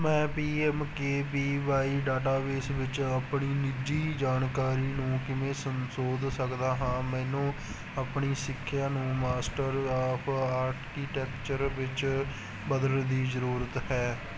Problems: constant background noise